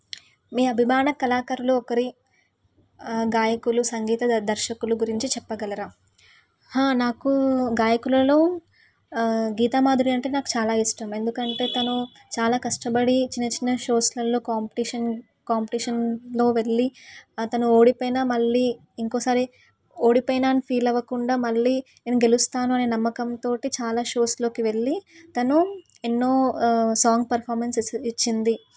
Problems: none marked